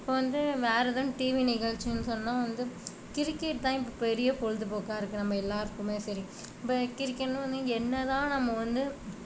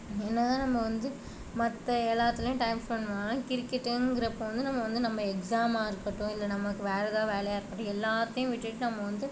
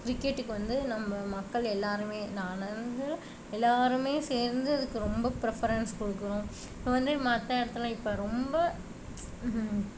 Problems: none marked